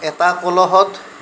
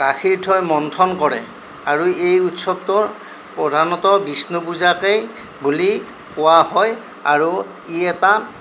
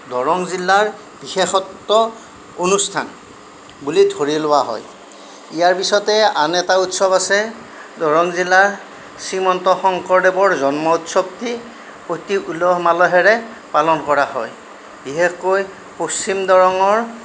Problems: none marked